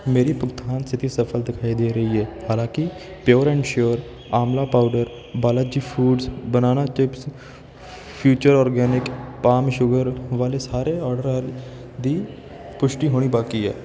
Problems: background sounds at intervals